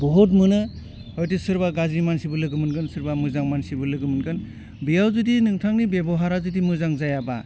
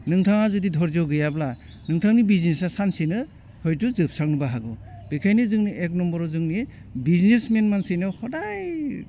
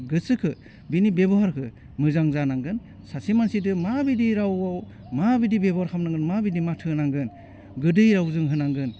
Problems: none marked